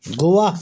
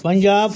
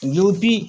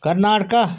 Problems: background sounds at intervals